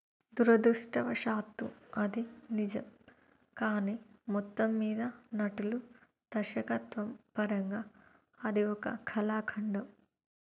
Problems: low volume